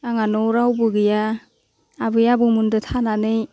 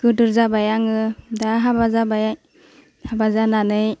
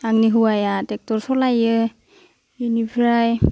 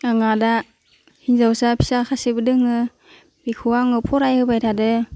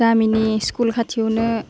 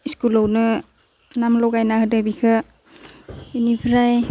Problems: none marked